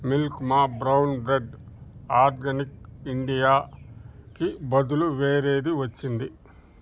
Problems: none marked